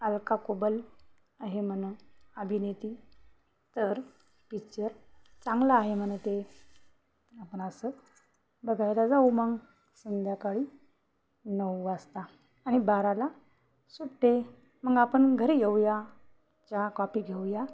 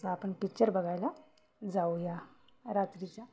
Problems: constant background noise, background conversations at intervals